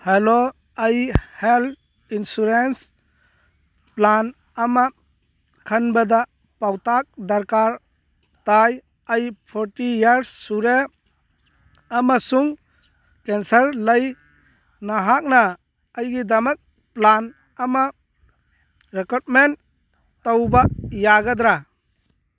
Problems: none marked